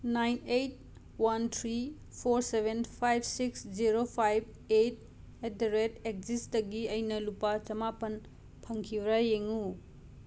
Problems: none marked